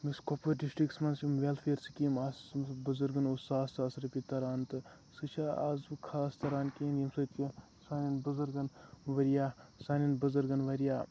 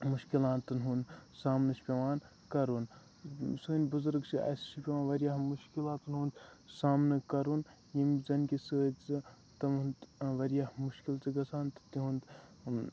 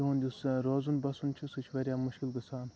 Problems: low volume